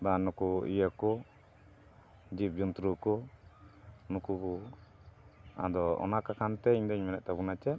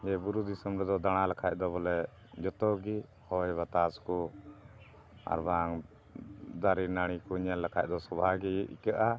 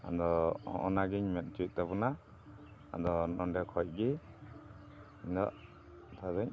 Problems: none marked